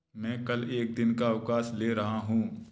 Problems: background sounds at intervals